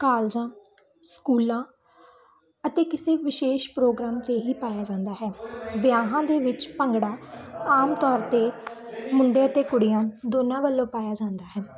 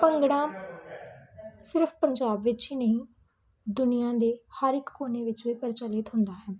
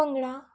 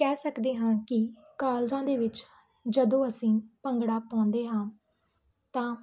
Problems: constant background noise